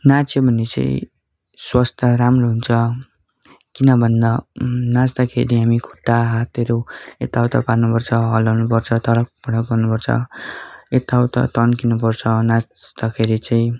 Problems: constant background noise, continuous background conversations